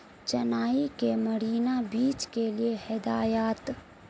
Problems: constant background noise, low volume